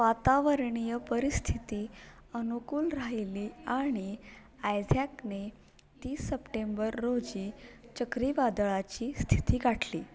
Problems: background conversations at intervals